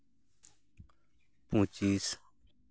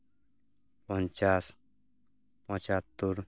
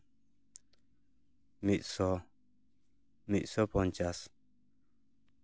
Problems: none marked